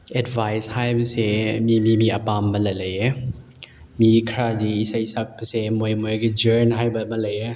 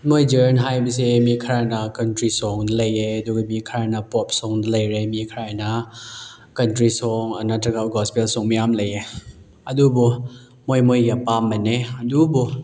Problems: none marked